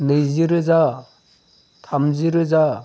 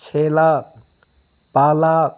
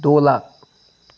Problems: none marked